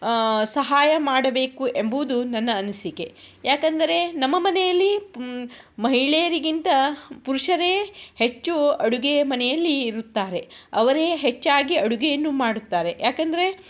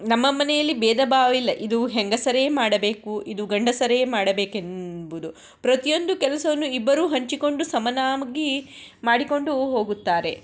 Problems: none marked